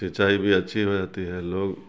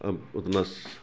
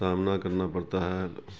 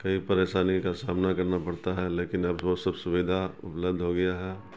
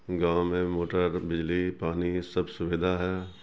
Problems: constant background noise